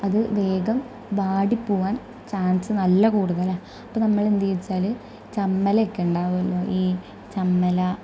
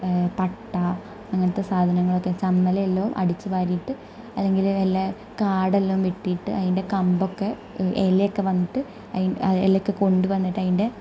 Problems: low volume